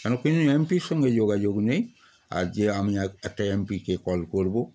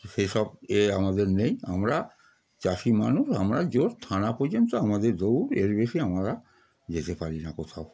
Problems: constant background noise, continuous background conversations